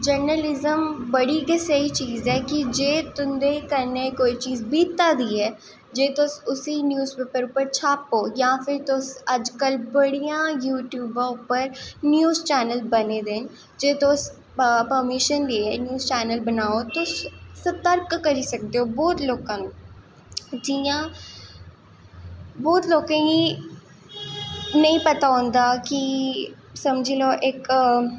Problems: echo